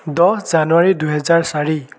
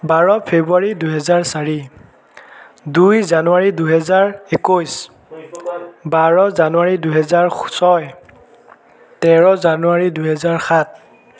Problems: background sounds at intervals